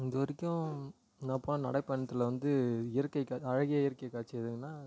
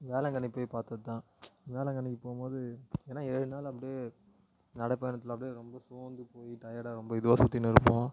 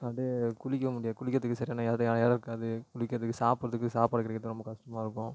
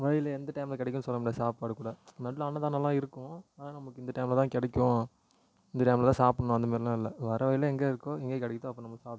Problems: low volume